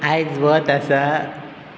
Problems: none marked